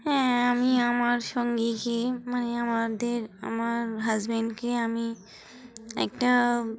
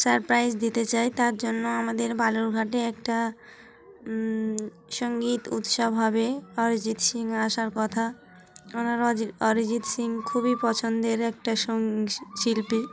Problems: constant background noise, continuous background conversations